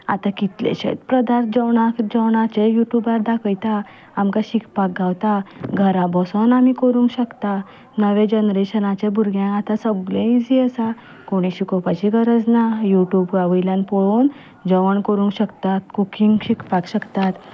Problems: none marked